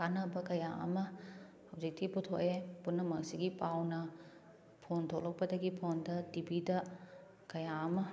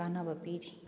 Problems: none marked